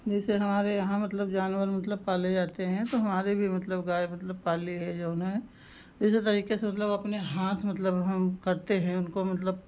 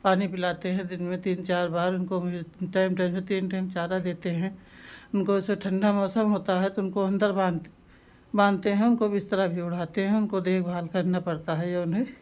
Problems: constant background noise